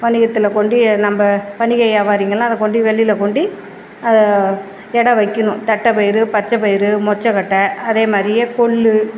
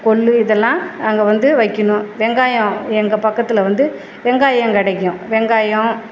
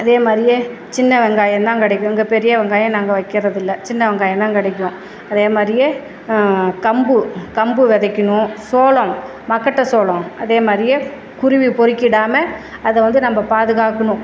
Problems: background sounds at intervals